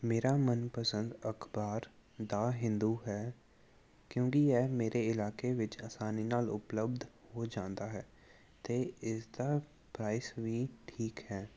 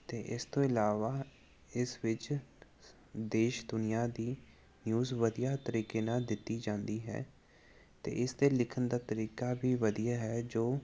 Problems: none marked